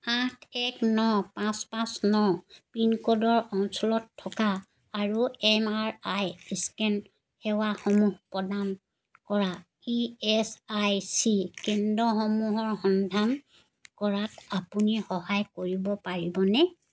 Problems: background sounds at intervals